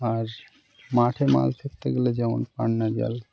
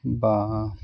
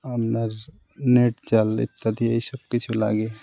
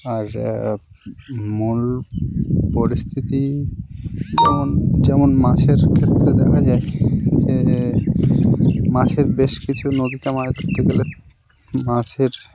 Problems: none marked